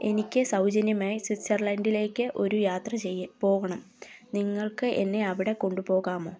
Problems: background conversations at intervals